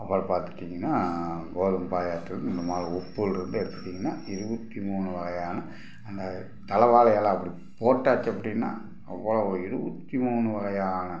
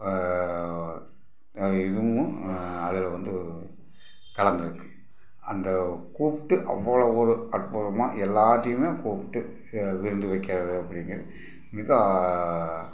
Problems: background sounds at intervals